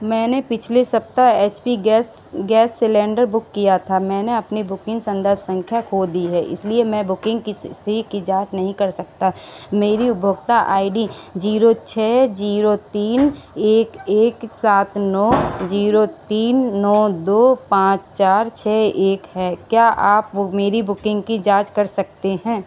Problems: constant background noise